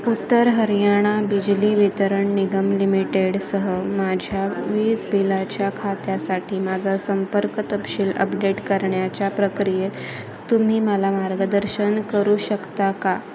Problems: constant background noise, continuous background conversations